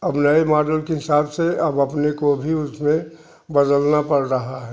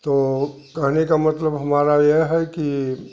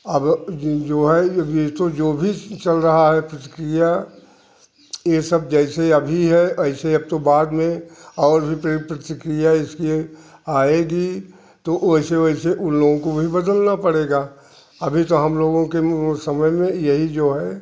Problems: constant background noise